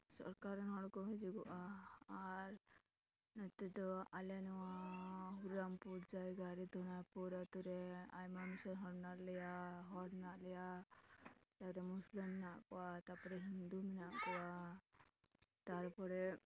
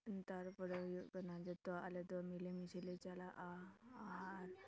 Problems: background conversations at intervals